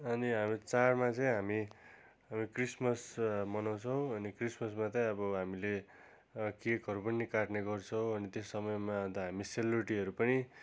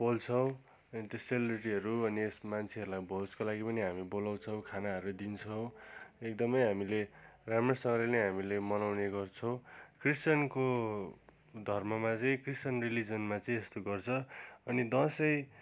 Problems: none marked